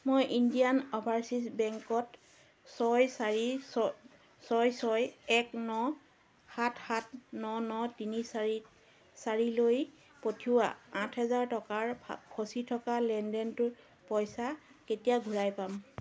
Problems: constant background noise